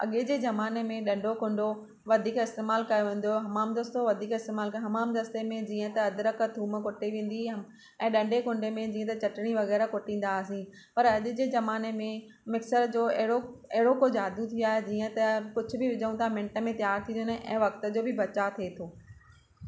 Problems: none marked